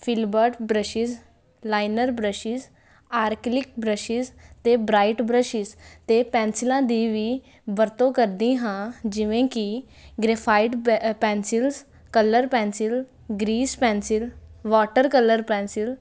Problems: constant background noise